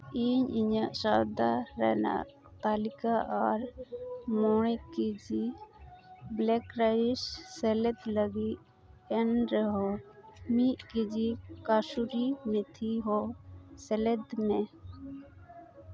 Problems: constant background noise